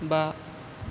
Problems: constant background noise